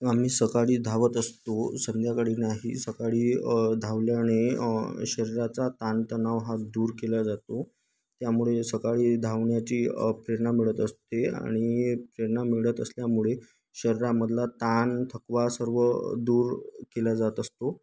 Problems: none marked